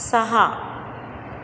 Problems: constant background noise